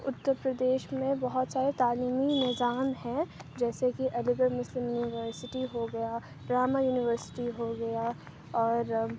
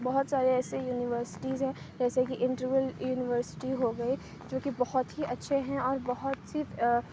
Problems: constant background noise, low volume